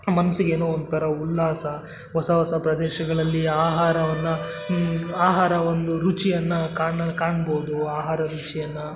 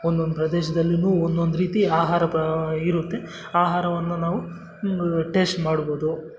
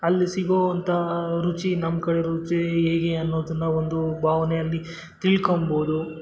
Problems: constant background noise